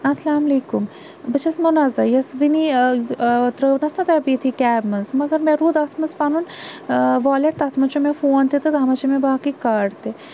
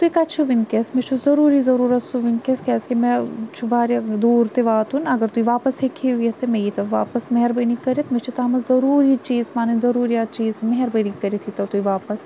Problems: constant background noise